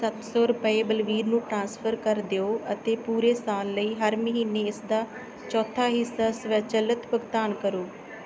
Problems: background sounds at intervals, background conversations at intervals